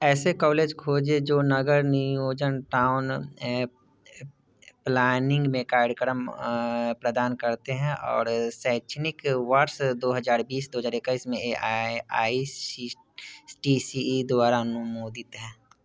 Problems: background sounds at intervals